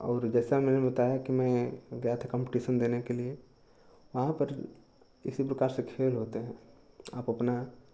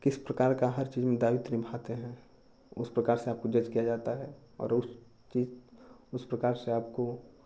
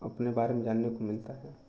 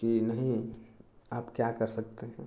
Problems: none marked